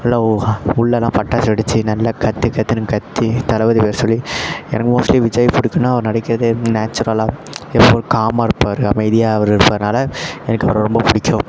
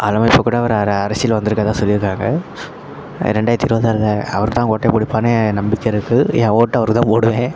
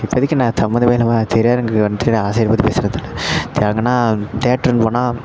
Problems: constant background noise, continuous background conversations